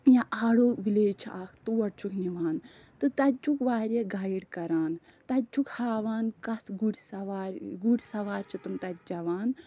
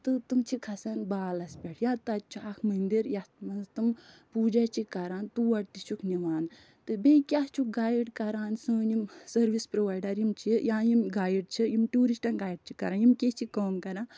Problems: none marked